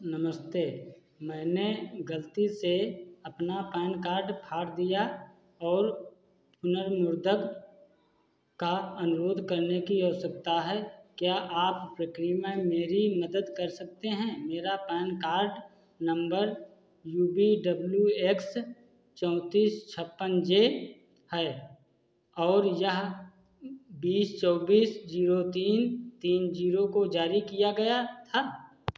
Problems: none marked